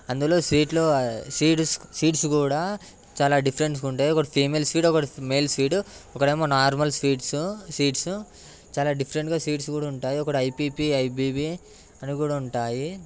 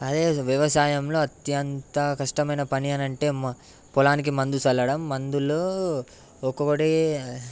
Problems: background sounds at intervals